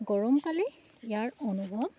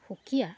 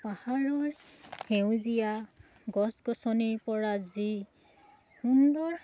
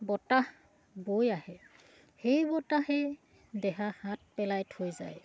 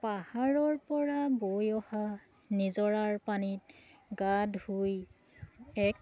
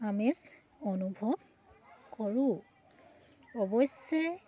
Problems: none marked